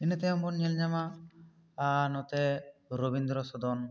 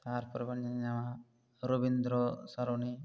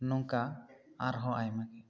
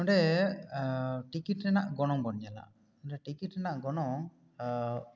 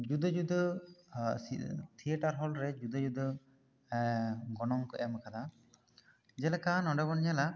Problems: none marked